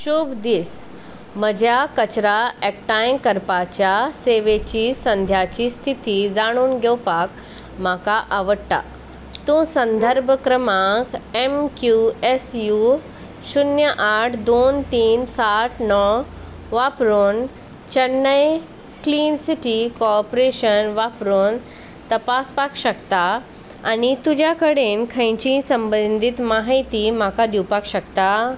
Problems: none marked